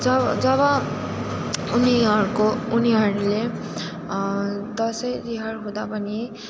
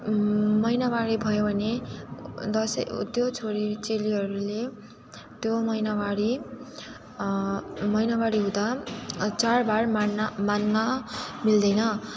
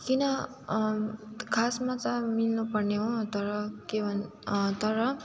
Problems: constant background noise, continuous background conversations